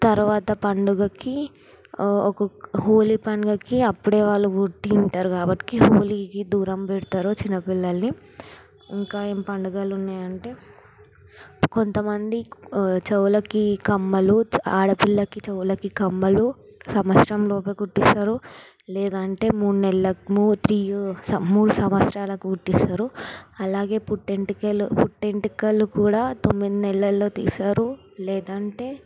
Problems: background sounds at intervals